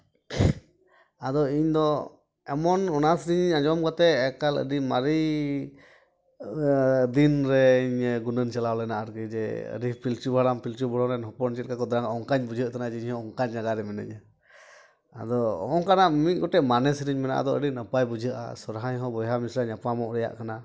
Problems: none marked